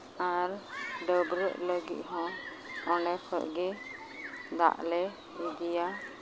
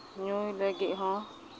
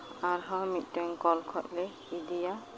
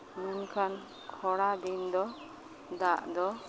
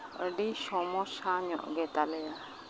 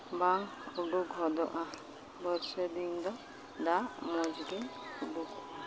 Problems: constant background noise, background conversations at intervals